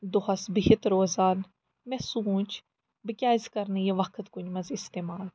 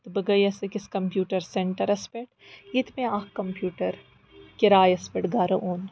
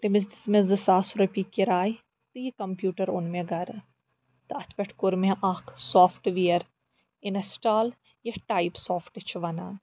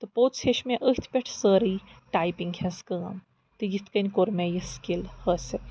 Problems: background sounds at intervals